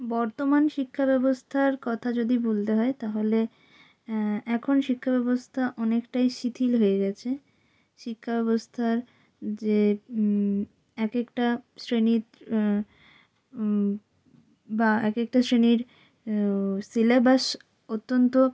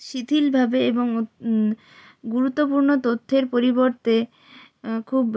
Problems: constant background noise